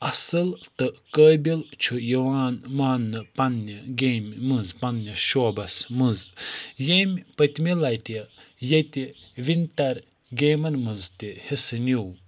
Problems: none marked